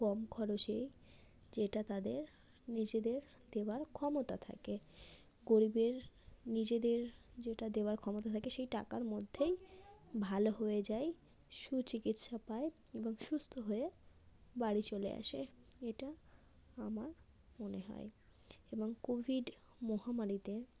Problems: none marked